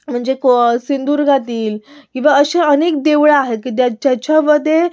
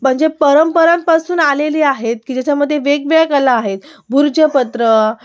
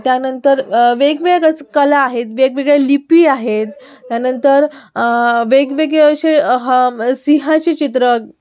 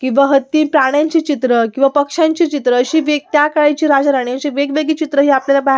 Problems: background sounds at intervals, background conversations at intervals